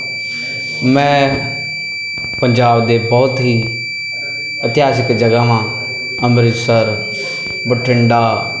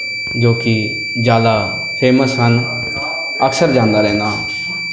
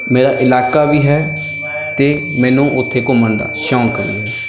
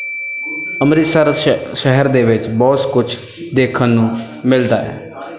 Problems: constant background noise, background conversations at intervals